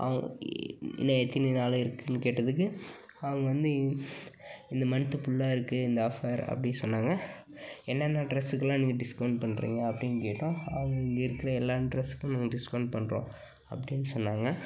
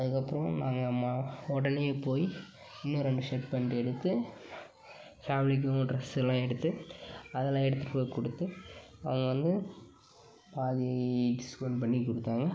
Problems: background sounds at intervals, background conversations at intervals